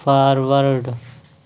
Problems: constant background noise